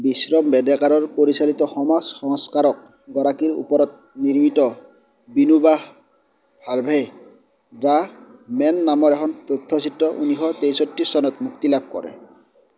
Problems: none marked